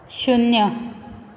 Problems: none marked